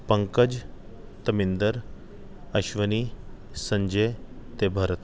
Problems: background sounds at intervals